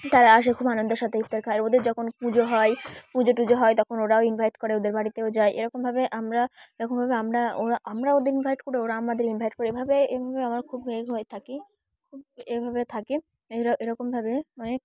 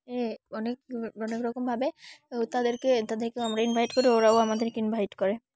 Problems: none marked